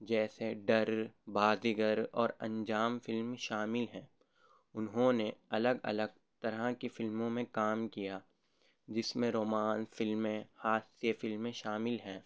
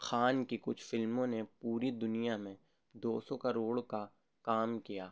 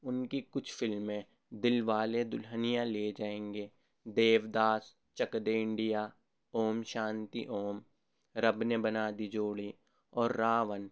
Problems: none marked